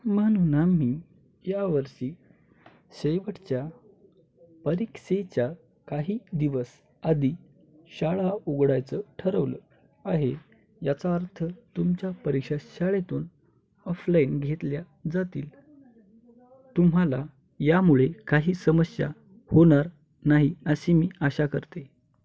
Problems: none marked